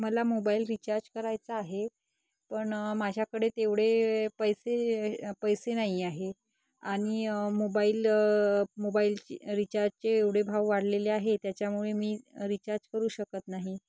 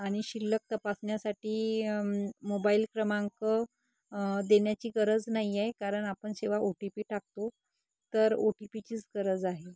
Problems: background sounds at intervals